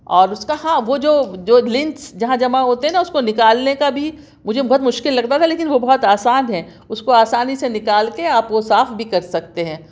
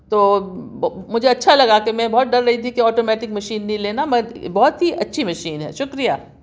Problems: none marked